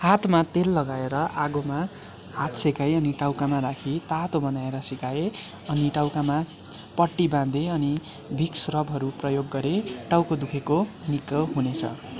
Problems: constant background noise